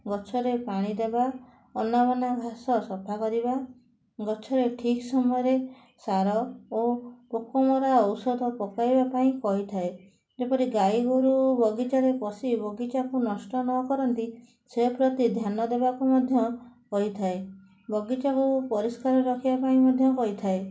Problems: constant background noise